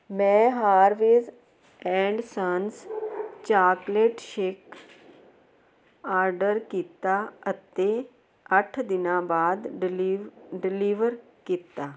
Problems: none marked